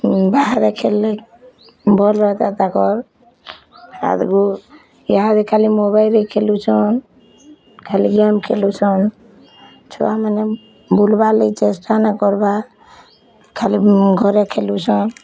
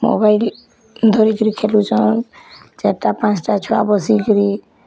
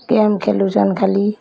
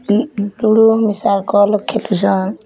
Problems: background sounds at intervals